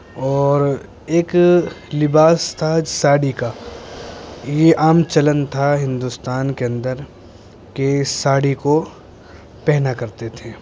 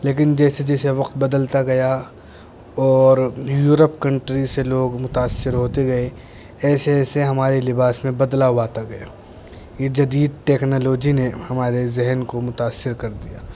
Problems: constant background noise